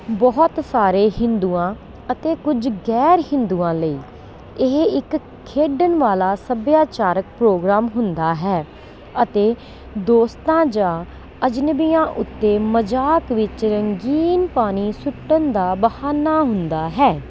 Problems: none marked